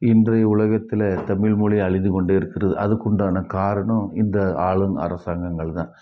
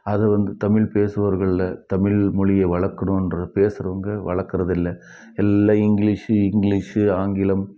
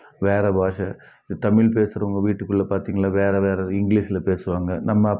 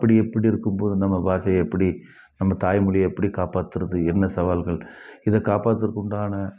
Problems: none marked